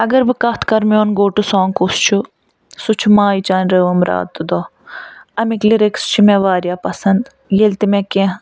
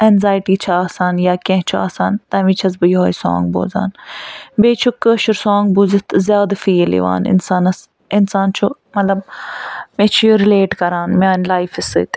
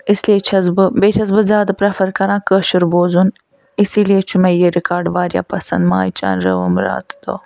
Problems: none marked